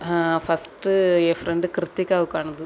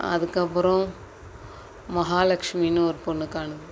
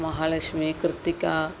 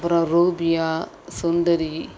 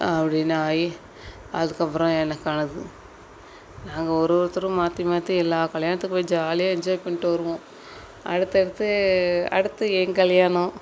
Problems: constant background noise